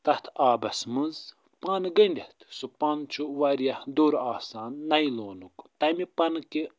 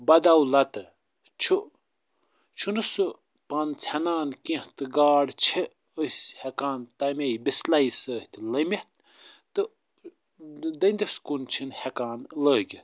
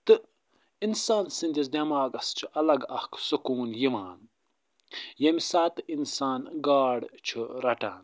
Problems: none marked